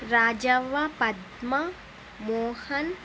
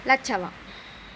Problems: constant background noise